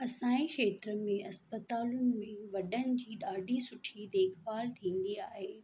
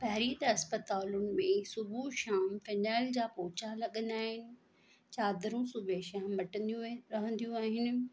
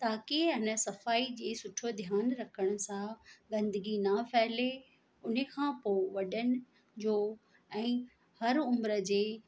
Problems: constant background noise